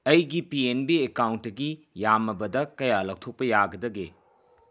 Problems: background sounds at intervals